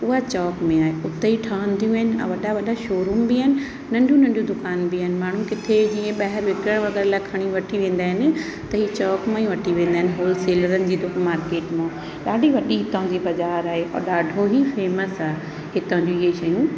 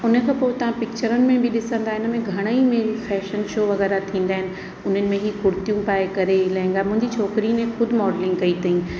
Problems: constant background noise, echo